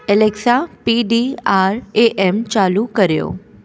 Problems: constant background noise, echo